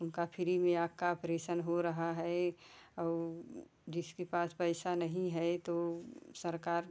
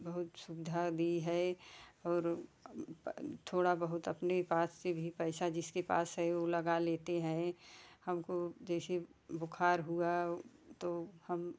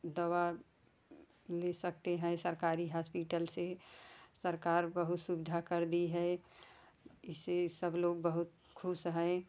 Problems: none marked